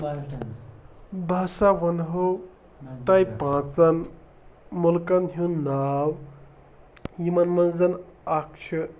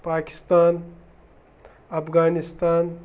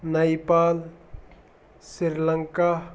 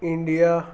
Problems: none marked